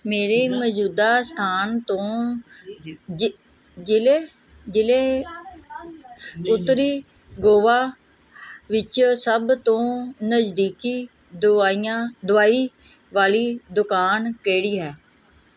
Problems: background sounds at intervals, background conversations at intervals